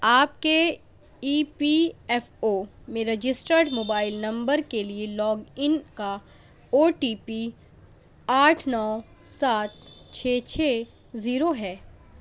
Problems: none marked